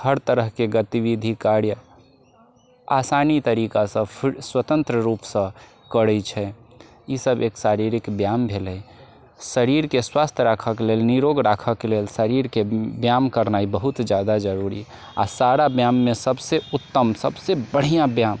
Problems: constant background noise